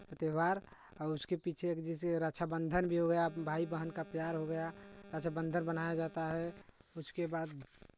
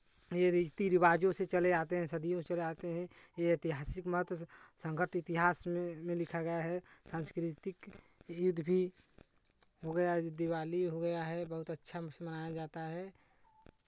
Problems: background sounds at intervals